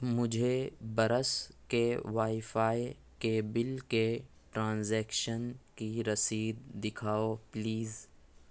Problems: none marked